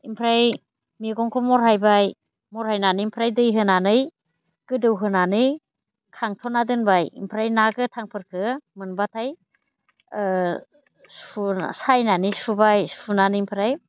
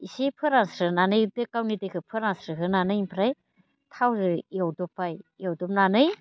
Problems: constant background noise